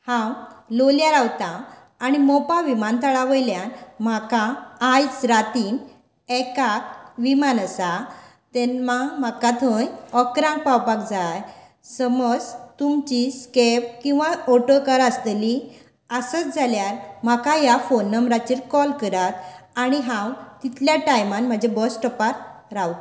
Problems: none marked